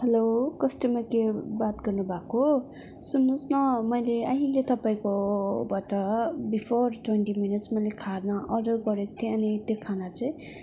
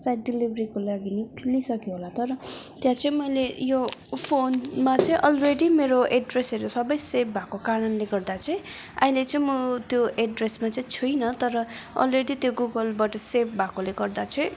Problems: constant background noise, background conversations at intervals